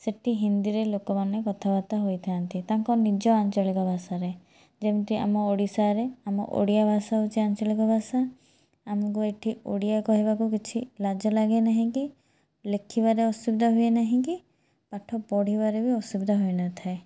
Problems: none marked